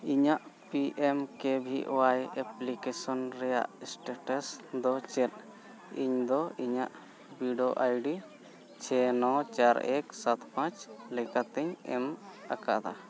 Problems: continuous background conversations